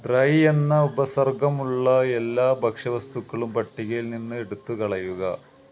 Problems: constant background noise